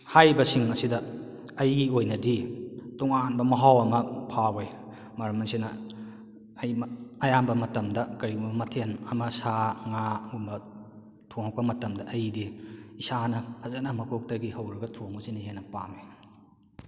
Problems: echo